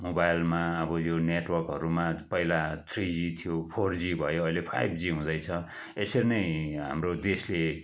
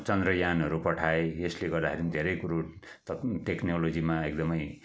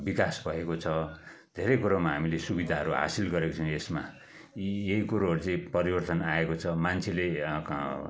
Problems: background conversations at intervals